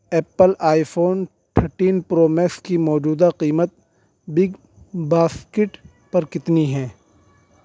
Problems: constant background noise